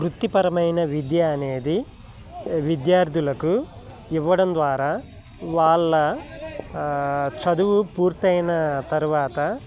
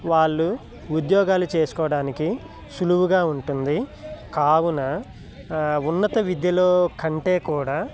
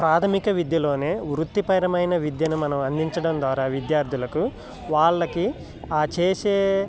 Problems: none marked